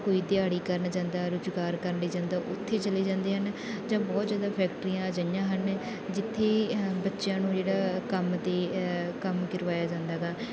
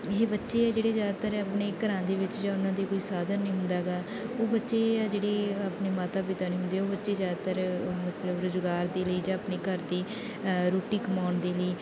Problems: none marked